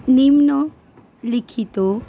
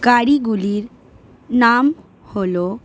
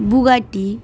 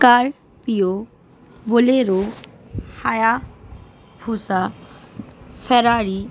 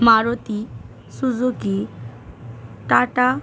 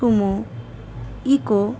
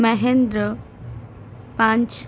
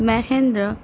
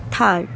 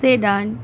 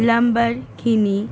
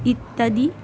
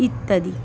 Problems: constant background noise, continuous background conversations